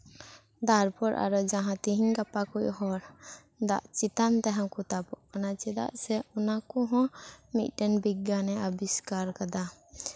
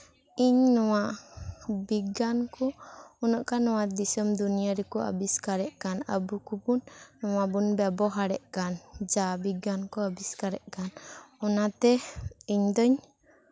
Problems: none marked